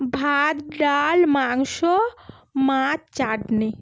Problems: none marked